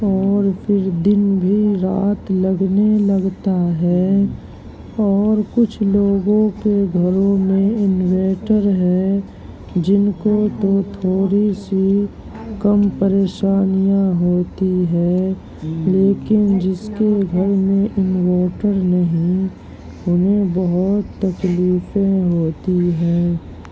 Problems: constant background noise, continuous background conversations, low volume